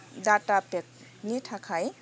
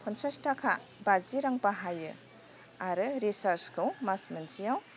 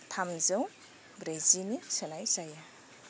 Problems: constant background noise